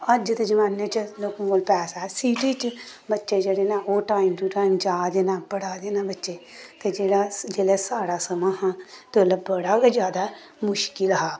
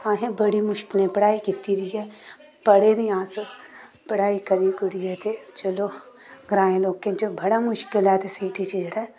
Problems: constant background noise